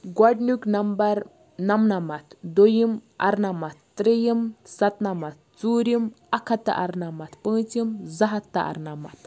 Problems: none marked